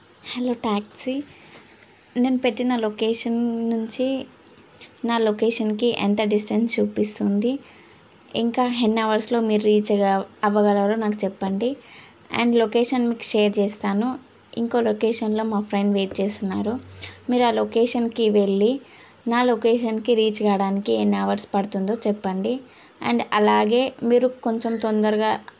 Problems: none marked